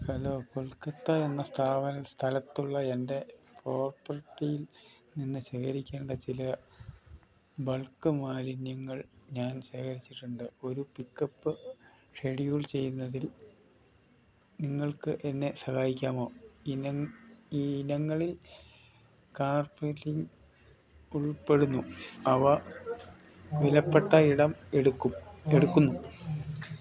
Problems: none marked